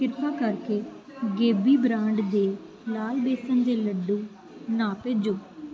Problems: constant background noise